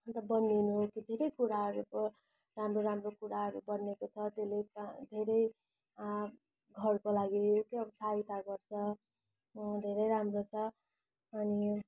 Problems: none marked